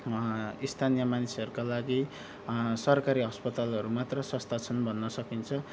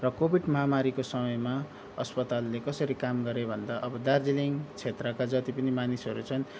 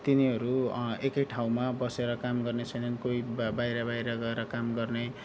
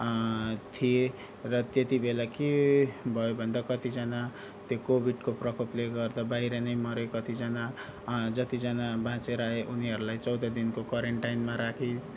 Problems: background sounds at intervals